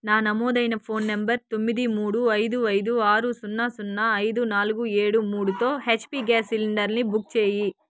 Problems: background sounds at intervals